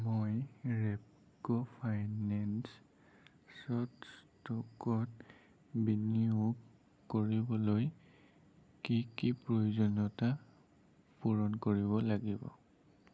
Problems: constant background noise, low volume